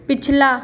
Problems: constant background noise, echo